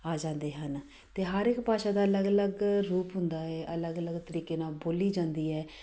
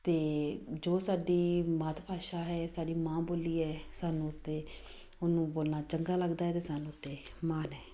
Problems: background sounds at intervals